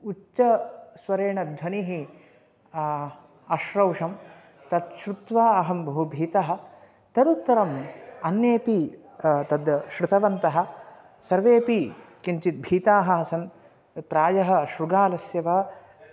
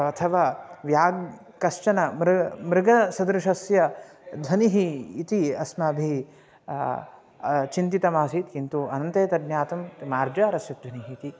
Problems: constant background noise